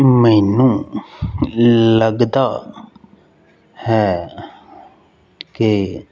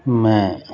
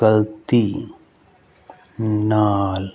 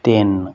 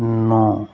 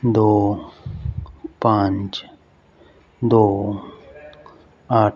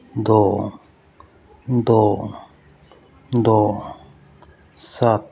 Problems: constant background noise